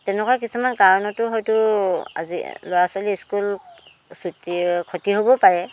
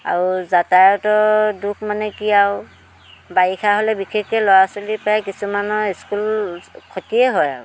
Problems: constant background noise